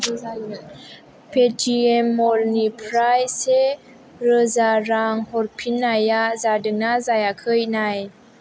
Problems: background conversations at intervals